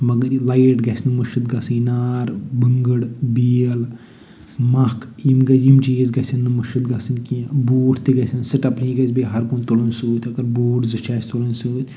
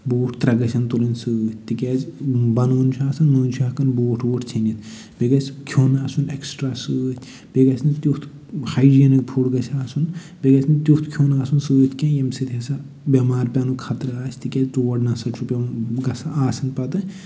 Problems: none marked